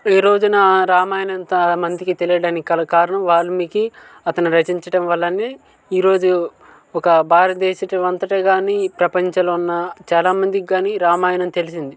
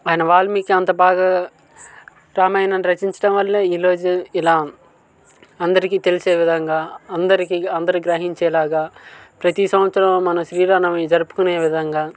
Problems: constant background noise, continuous background conversations